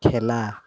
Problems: background sounds at intervals